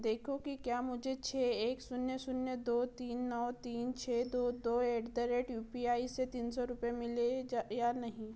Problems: background sounds at intervals